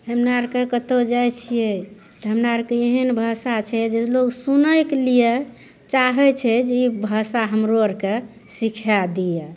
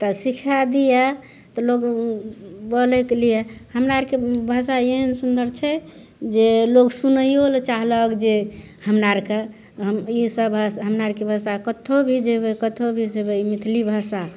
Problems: none marked